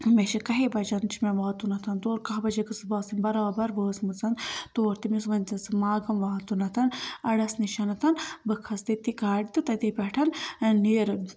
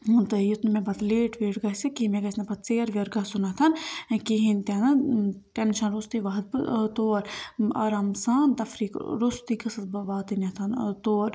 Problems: constant background noise